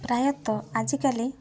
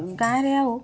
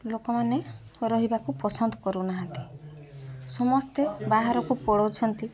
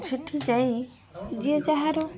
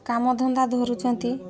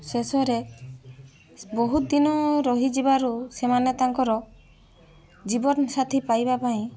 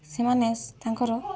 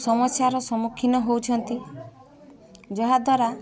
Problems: constant background noise, continuous background conversations